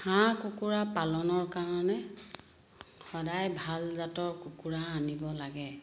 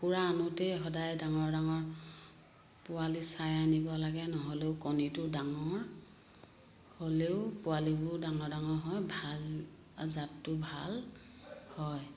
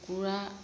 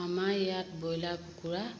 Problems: constant background noise